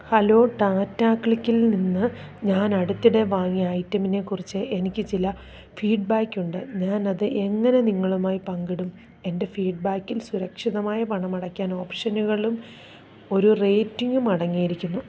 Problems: none marked